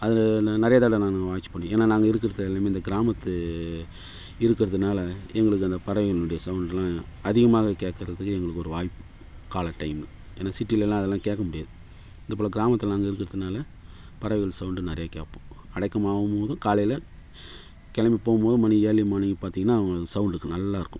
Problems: none marked